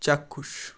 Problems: constant background noise